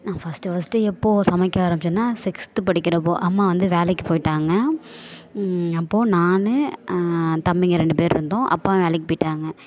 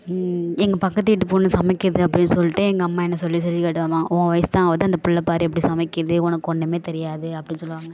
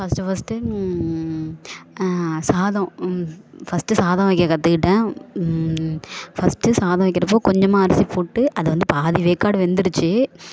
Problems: none marked